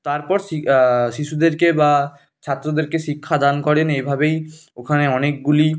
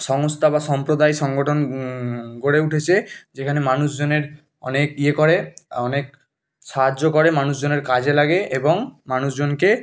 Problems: background sounds at intervals